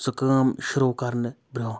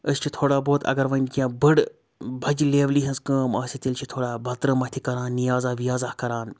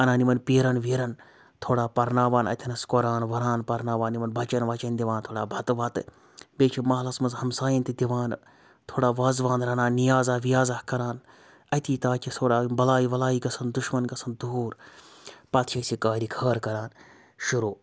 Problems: constant background noise